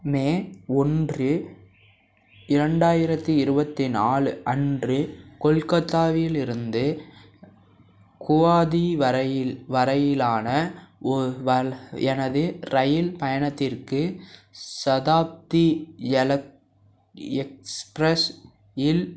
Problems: background sounds at intervals